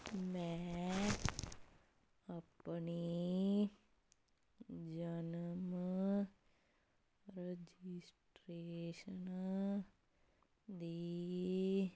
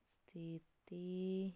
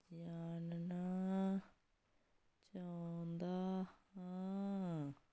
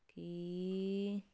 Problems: none marked